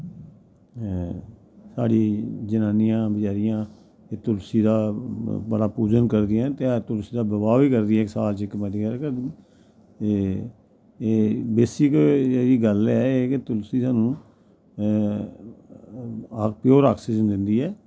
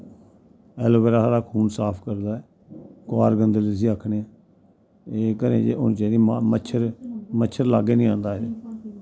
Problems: none marked